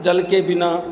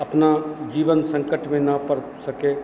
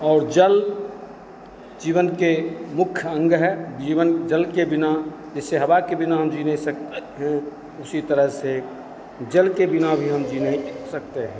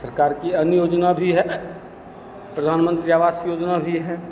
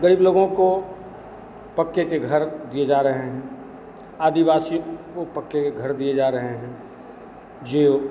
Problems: none marked